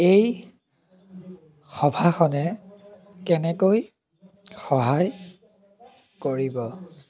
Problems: background sounds at intervals, background conversations at intervals